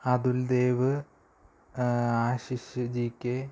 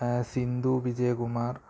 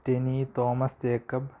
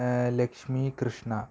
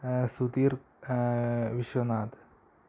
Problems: low volume